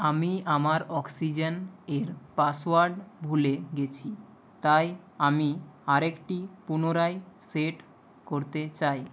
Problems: constant background noise